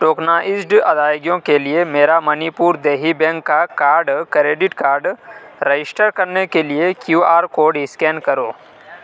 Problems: none marked